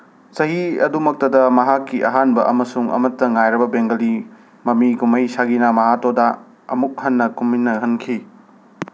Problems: constant background noise